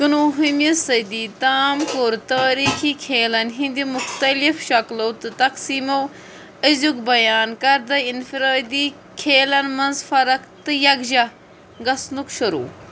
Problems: constant background noise